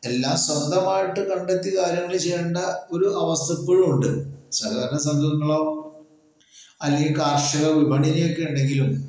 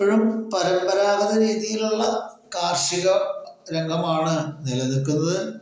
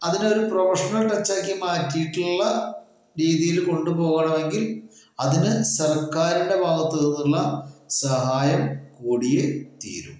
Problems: echo